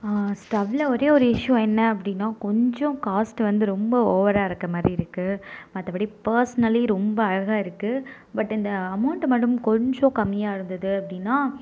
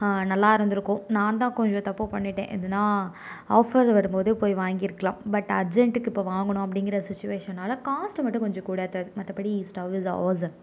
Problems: none marked